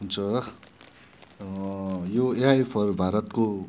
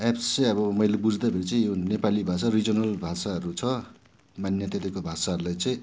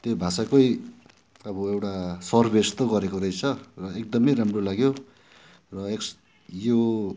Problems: background sounds at intervals